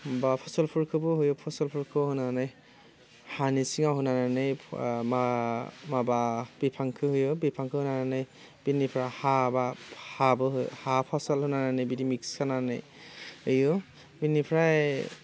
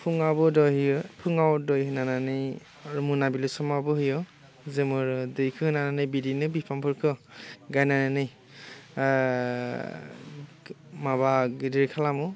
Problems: constant background noise